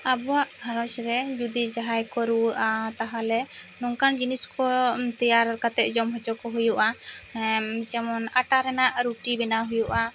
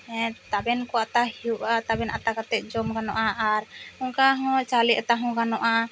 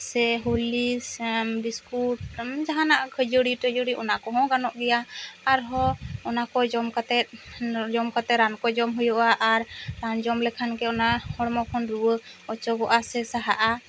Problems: constant background noise